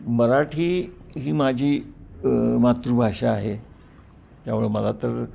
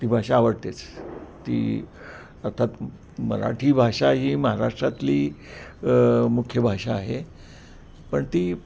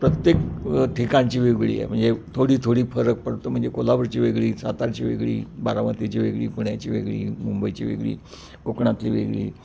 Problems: background sounds at intervals